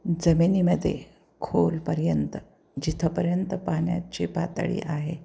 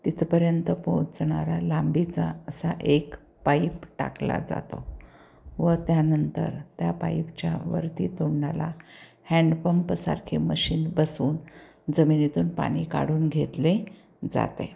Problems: none marked